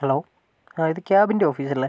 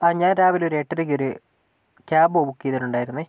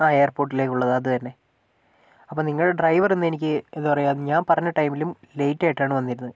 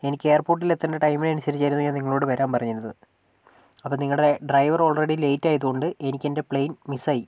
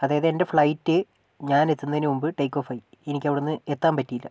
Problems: none marked